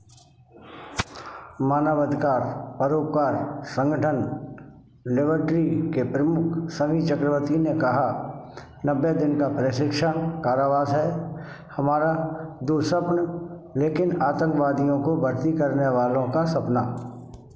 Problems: constant background noise